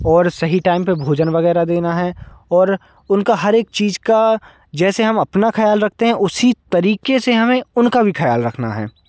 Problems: constant background noise